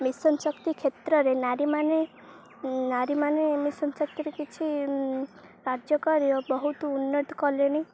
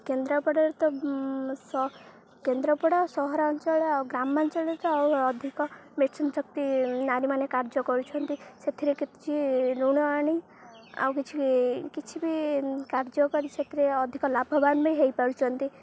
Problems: low volume